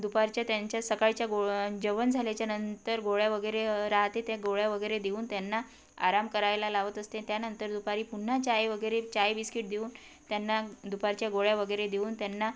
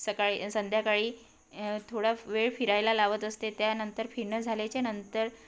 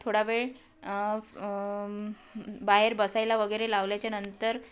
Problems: background sounds at intervals